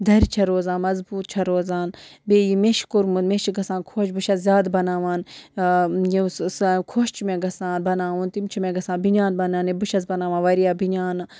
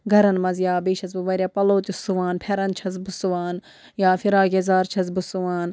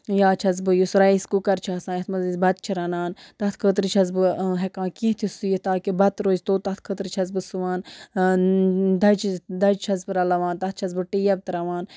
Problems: background sounds at intervals